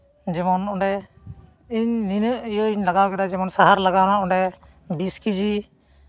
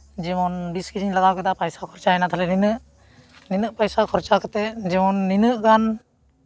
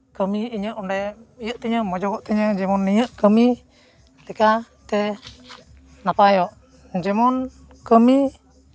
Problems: none marked